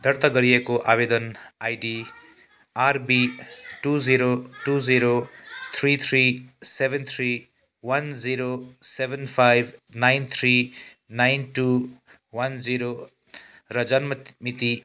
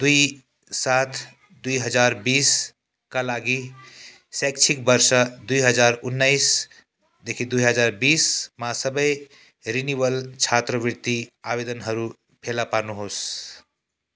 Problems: background sounds at intervals